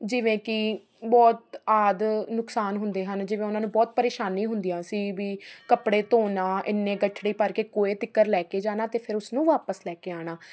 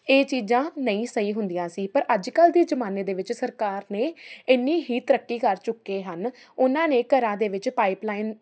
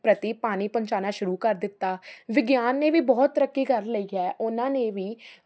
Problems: constant background noise